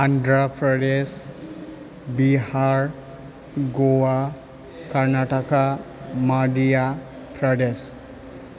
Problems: none marked